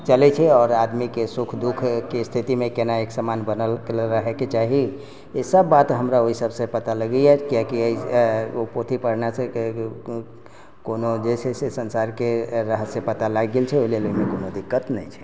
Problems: none marked